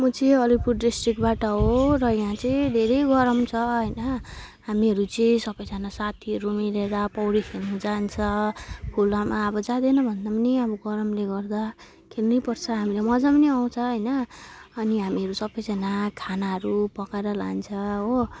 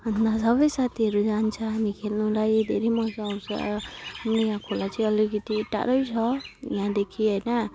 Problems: constant background noise